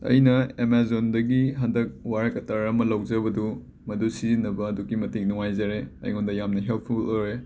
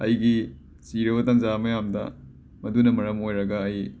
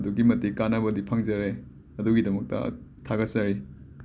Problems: background sounds at intervals